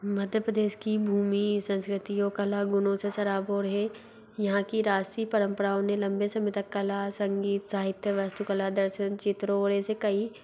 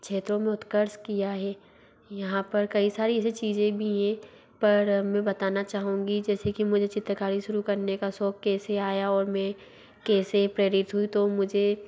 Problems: low volume